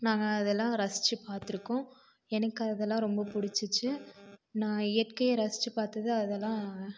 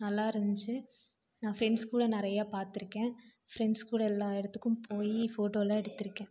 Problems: constant background noise